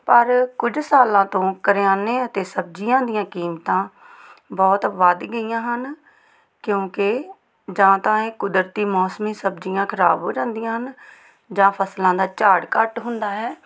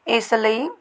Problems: none marked